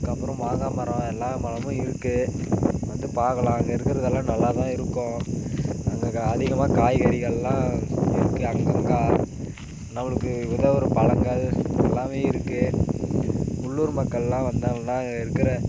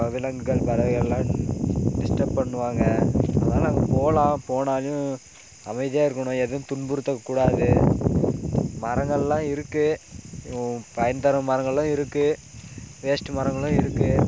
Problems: constant background noise